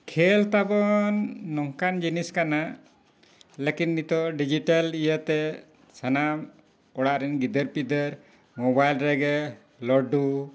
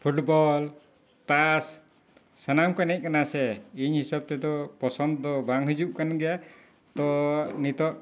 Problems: background sounds at intervals